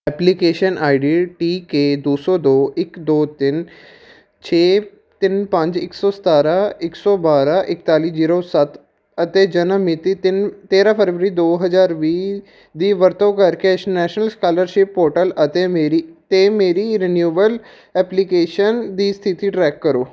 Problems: none marked